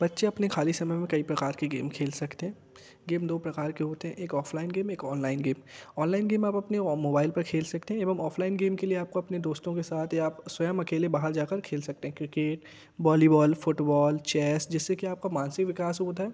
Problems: background sounds at intervals